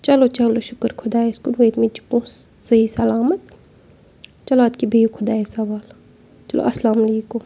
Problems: constant background noise